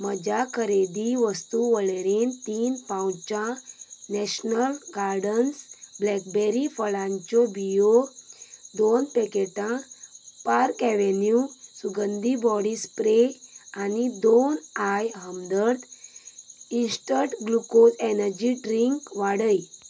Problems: background sounds at intervals